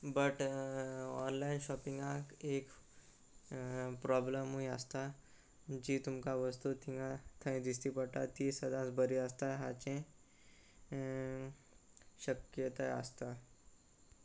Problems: none marked